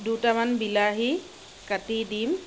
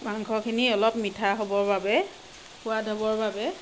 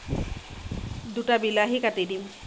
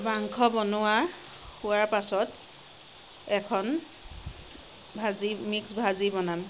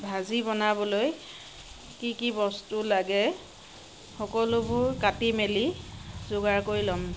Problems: constant background noise